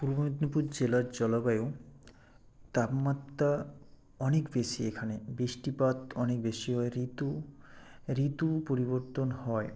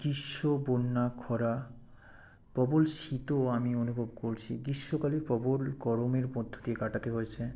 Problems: background sounds at intervals